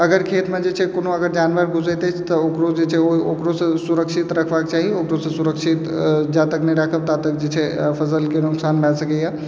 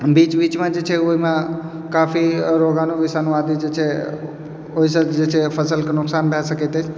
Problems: background sounds at intervals, background conversations at intervals